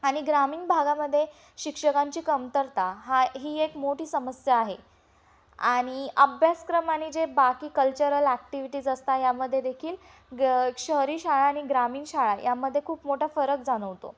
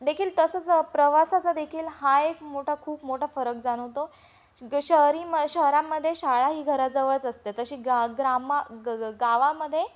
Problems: none marked